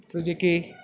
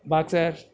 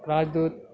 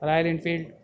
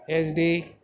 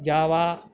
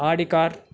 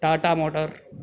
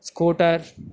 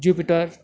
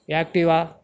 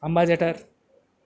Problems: none marked